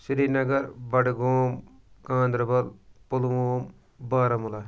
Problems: none marked